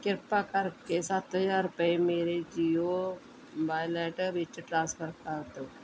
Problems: none marked